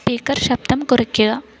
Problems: background sounds at intervals